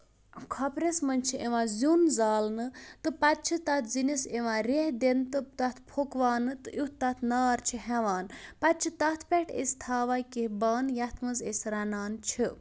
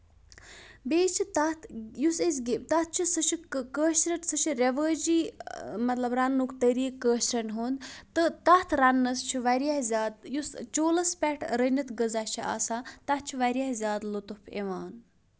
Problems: none marked